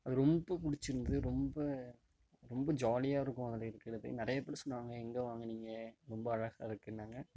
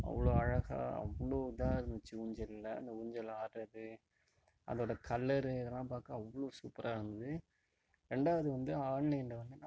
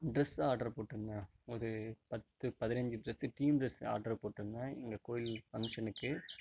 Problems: background sounds at intervals